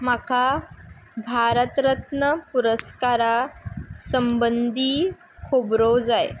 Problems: background sounds at intervals